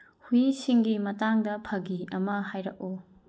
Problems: low volume